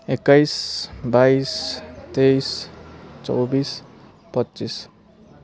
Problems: none marked